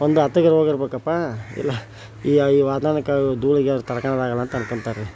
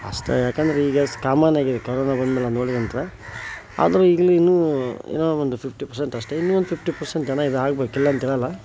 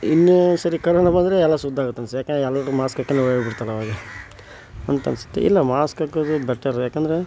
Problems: none marked